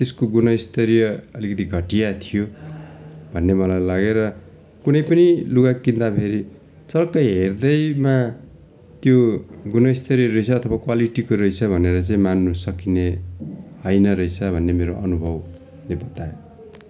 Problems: none marked